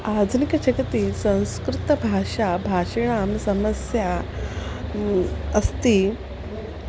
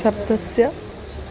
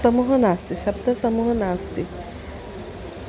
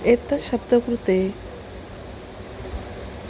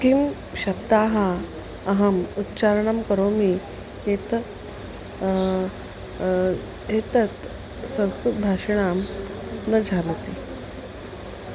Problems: constant background noise